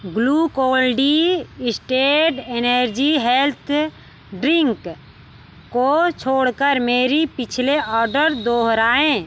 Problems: background sounds at intervals